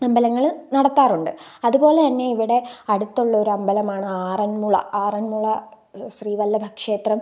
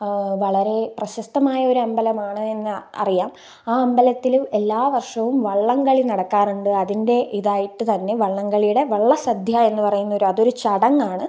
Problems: none marked